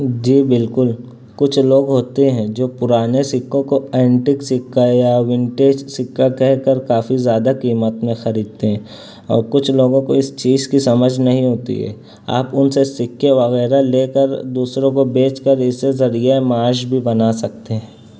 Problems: background sounds at intervals